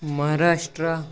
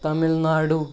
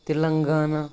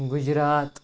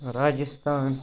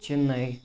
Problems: background sounds at intervals